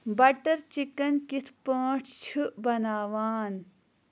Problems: none marked